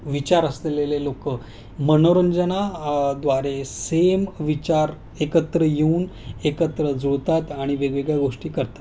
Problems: none marked